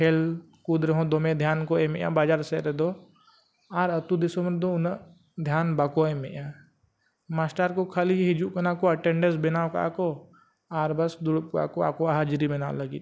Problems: none marked